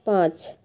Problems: constant background noise